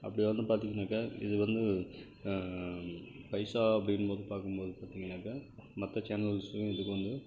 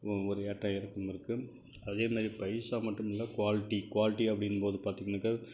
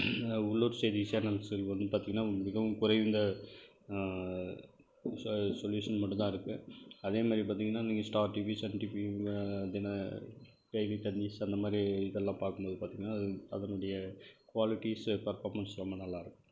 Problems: constant background noise, low volume